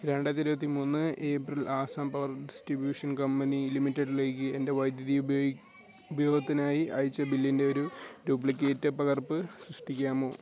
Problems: background sounds at intervals